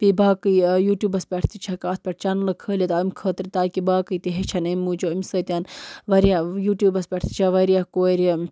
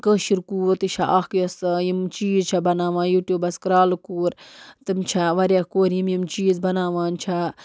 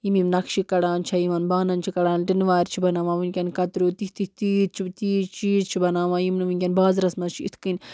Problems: background sounds at intervals